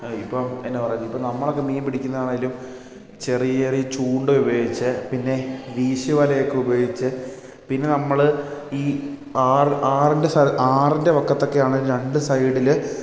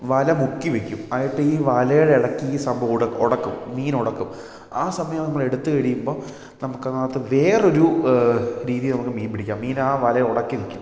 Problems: none marked